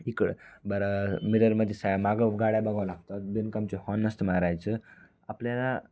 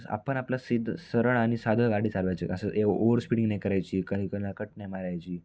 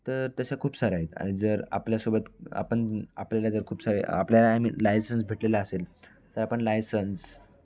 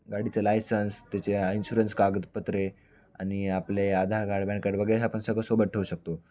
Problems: none marked